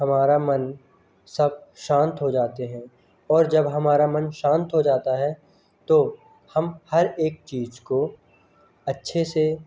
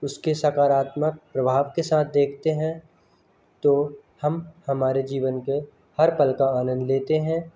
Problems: constant background noise, continuous background conversations